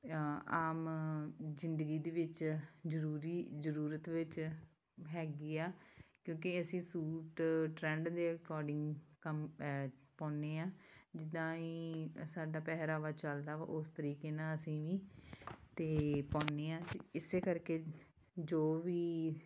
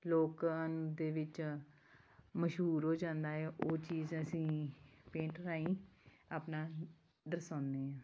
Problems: background sounds at intervals